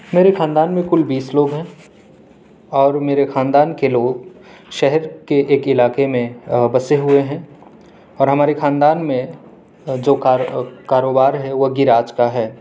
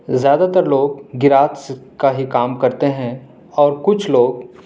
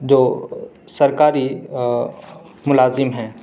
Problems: none marked